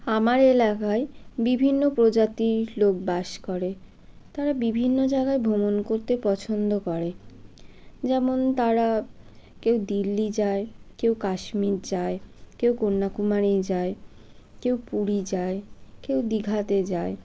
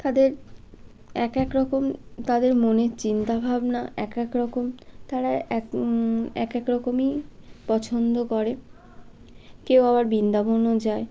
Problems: constant background noise